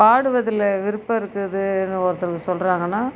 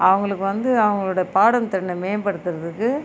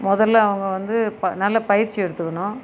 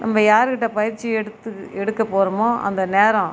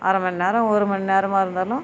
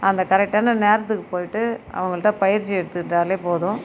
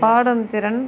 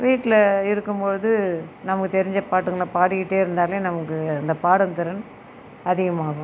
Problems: background conversations at intervals